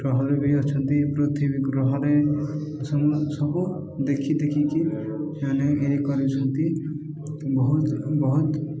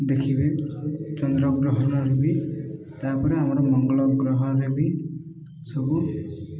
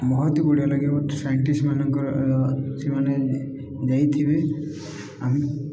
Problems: echo